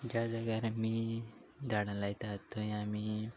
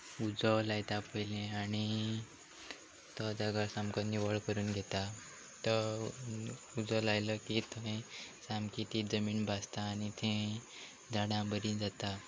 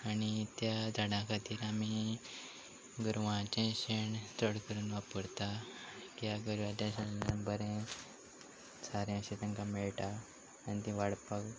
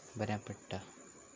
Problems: background sounds at intervals